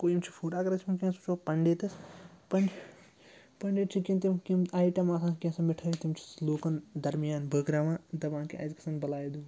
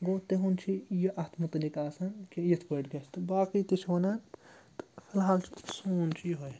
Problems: constant background noise